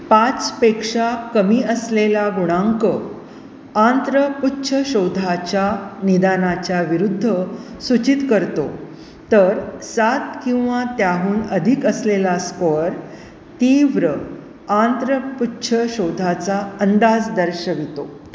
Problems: none marked